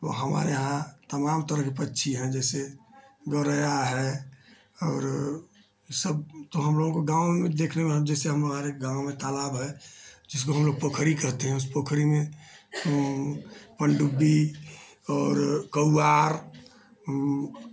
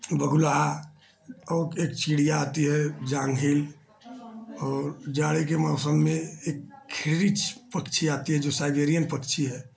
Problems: low volume